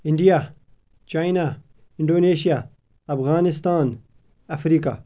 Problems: constant background noise